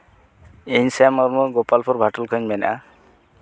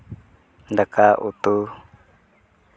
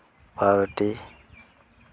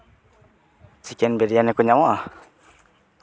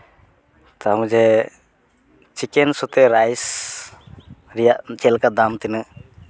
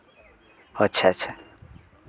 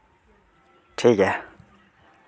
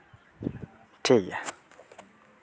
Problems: constant background noise, background conversations at intervals